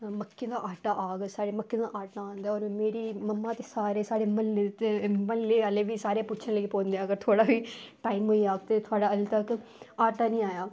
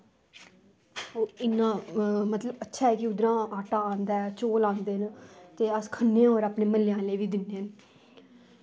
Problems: none marked